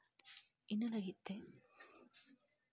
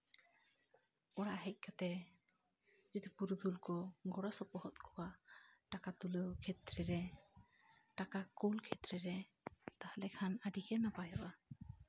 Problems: none marked